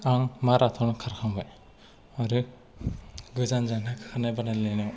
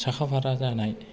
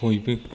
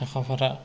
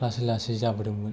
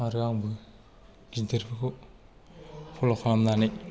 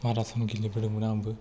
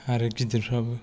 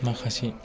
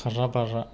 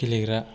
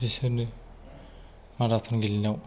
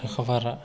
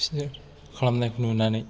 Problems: background sounds at intervals